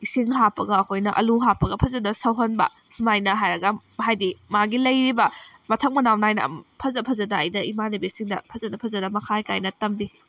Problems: background sounds at intervals